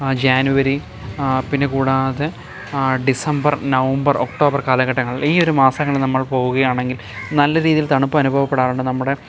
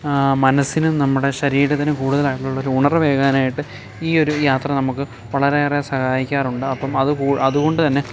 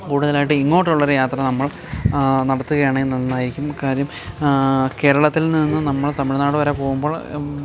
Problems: background sounds at intervals